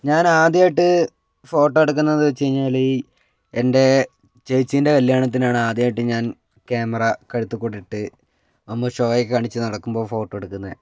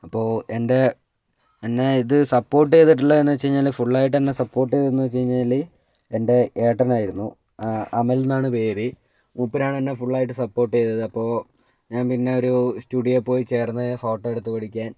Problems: none marked